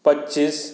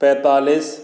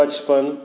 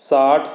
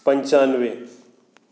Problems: echo